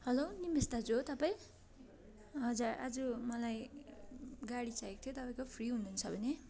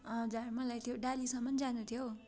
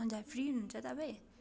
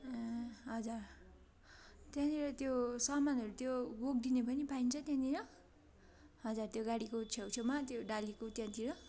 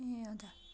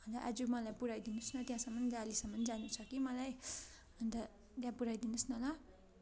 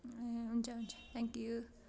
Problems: none marked